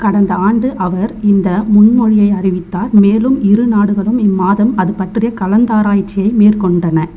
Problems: none marked